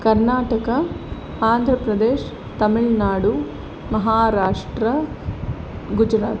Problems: constant background noise